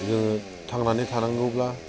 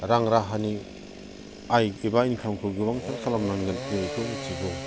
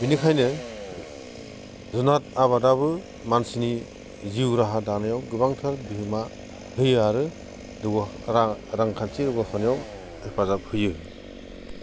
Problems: constant background noise